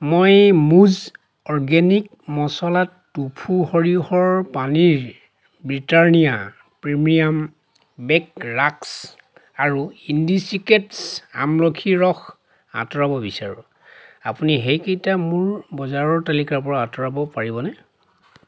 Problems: none marked